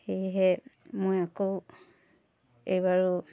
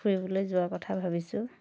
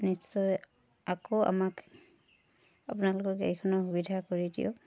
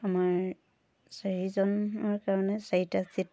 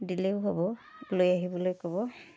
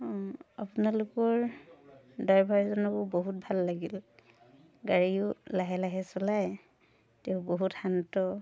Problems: background sounds at intervals, continuous background conversations